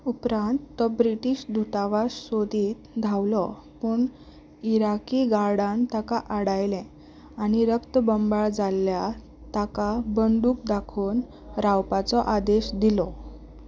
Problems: none marked